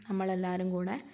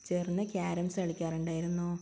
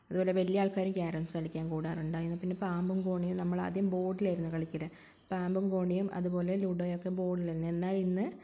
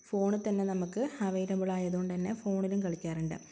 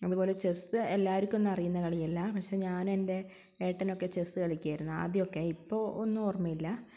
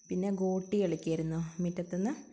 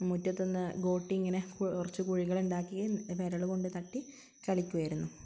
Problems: constant background noise